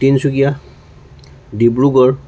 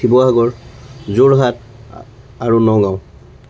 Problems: constant background noise